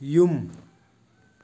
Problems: none marked